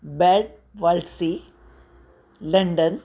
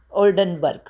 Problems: constant background noise